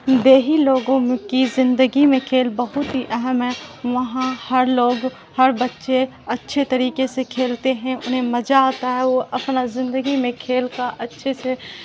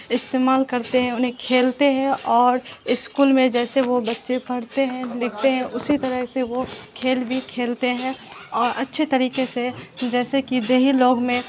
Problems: constant background noise